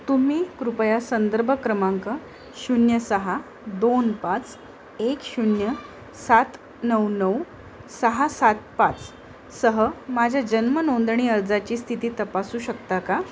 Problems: constant background noise, background conversations at intervals